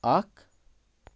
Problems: background sounds at intervals